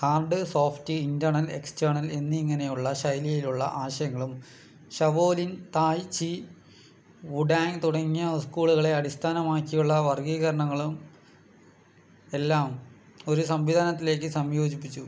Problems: low volume